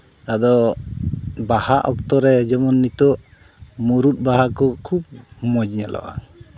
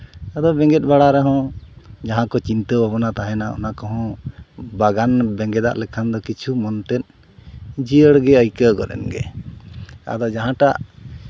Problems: none marked